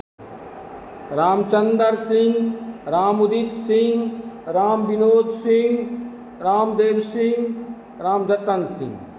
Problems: none marked